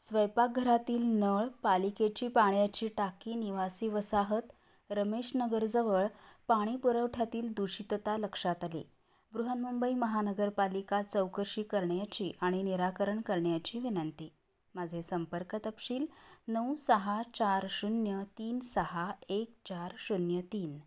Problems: background sounds at intervals